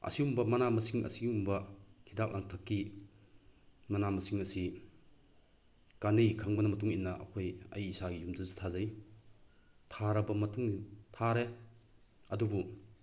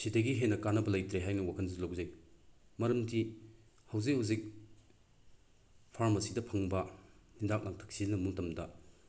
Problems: none marked